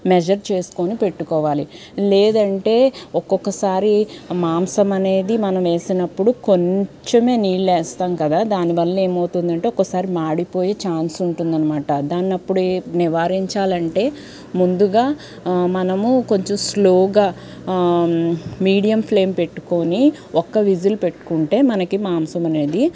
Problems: none marked